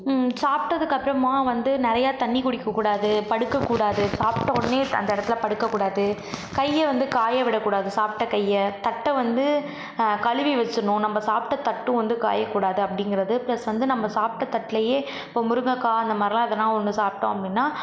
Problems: none marked